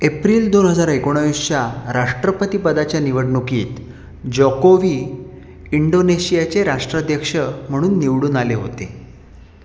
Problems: constant background noise